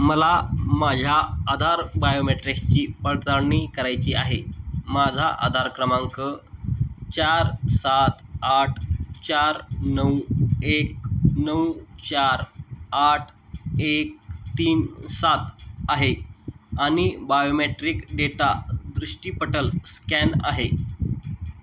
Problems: constant background noise